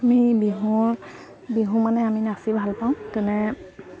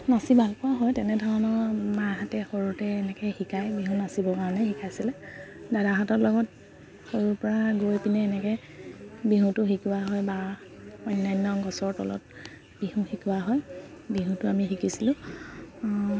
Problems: constant background noise, background conversations at intervals